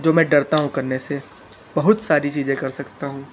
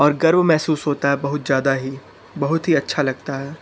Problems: constant background noise, continuous background conversations